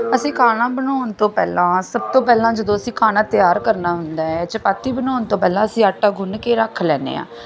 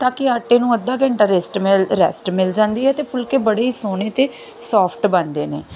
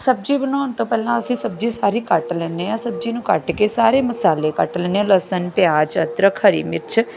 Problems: background sounds at intervals